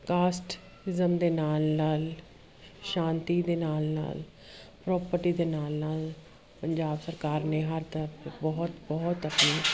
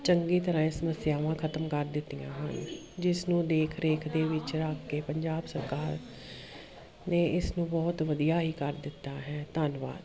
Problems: none marked